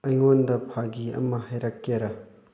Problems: none marked